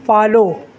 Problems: constant background noise